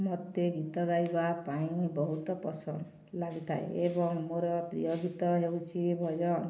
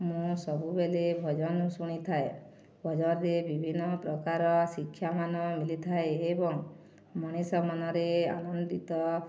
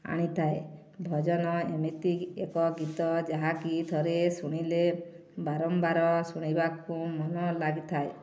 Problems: none marked